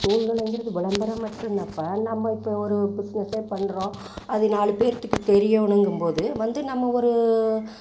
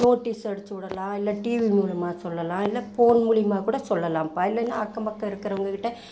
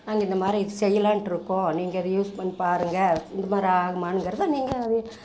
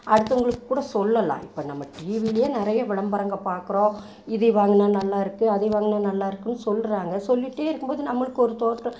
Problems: constant background noise